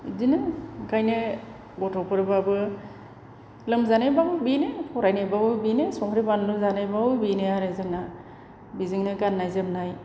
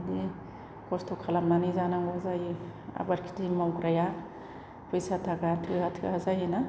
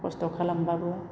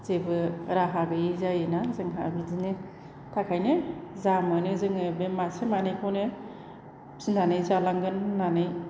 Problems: none marked